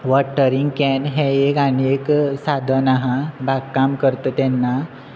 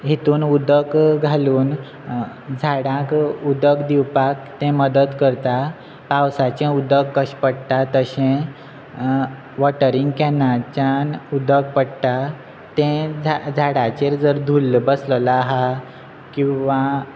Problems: constant background noise